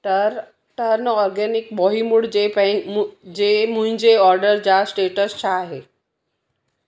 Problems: none marked